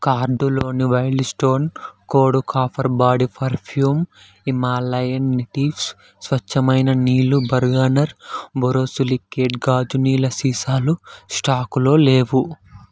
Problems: none marked